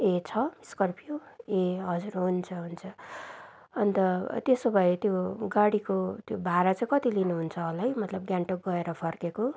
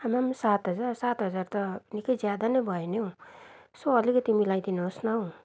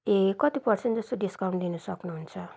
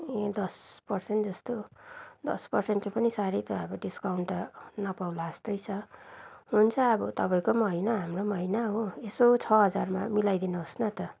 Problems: none marked